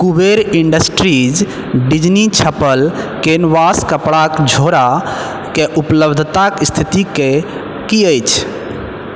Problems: background sounds at intervals